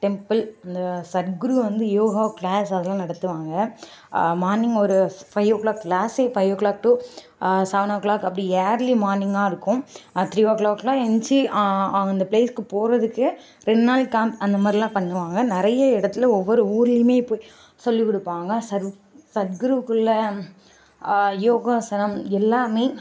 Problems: constant background noise